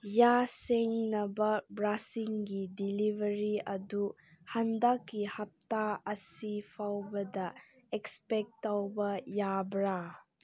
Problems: none marked